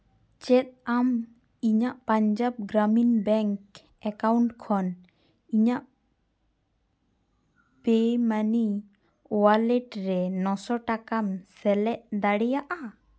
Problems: none marked